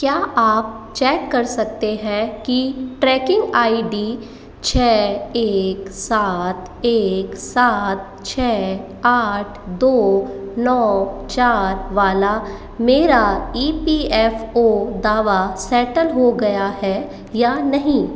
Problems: echo